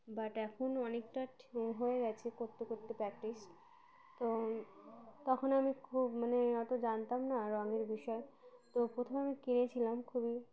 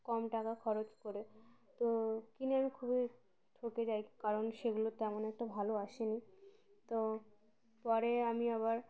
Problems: constant background noise, background conversations at intervals